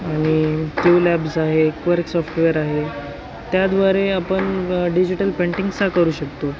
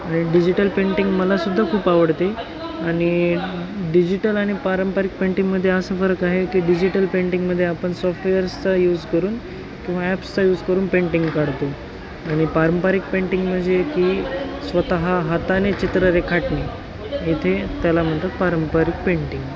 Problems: constant background noise, continuous background conversations